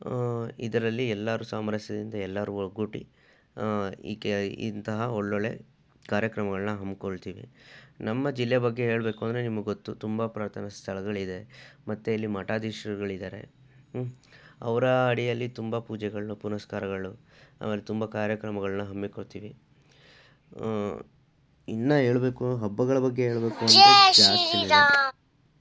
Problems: background sounds at intervals